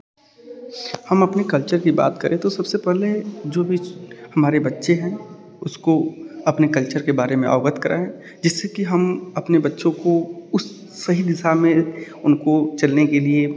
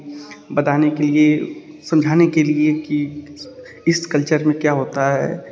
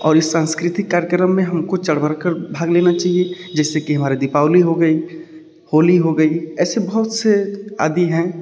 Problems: background sounds at intervals